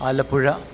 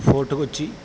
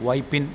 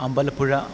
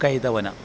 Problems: constant background noise, low volume